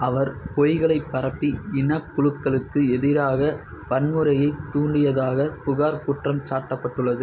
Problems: none marked